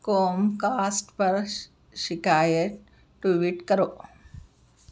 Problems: none marked